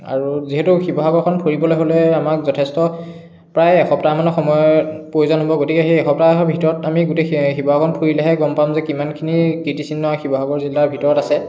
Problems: background sounds at intervals, continuous background conversations